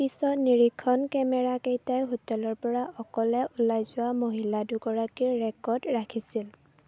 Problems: none marked